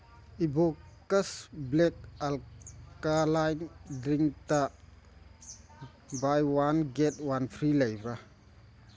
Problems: none marked